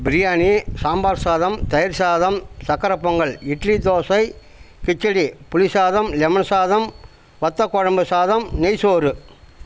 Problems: constant background noise